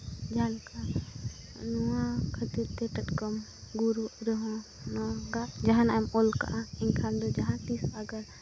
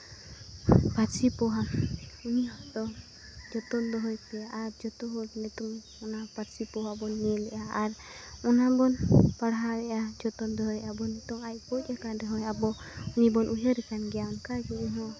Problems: constant background noise, background conversations at intervals